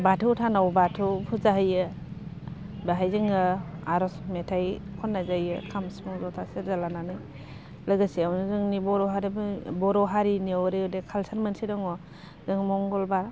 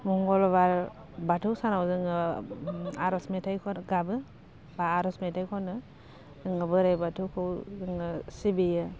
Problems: low volume